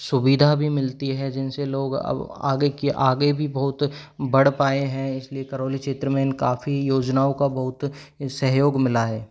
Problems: background sounds at intervals